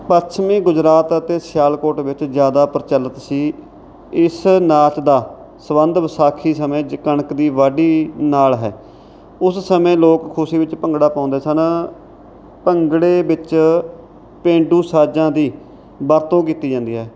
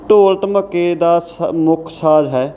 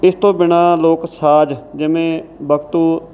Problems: none marked